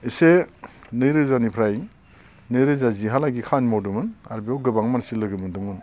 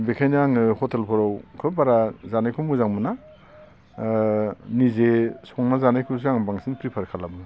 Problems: none marked